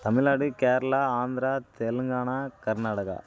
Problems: constant background noise